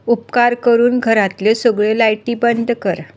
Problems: constant background noise